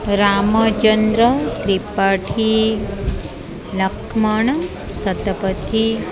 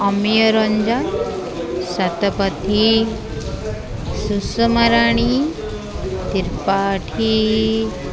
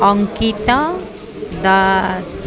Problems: constant background noise